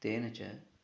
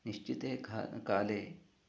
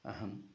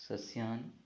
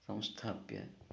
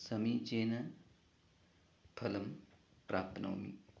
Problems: background conversations at intervals, low volume